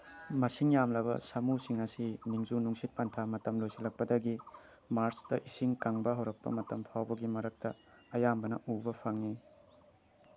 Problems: none marked